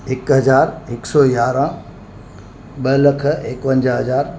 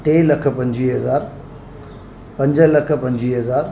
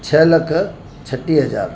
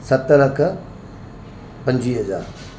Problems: constant background noise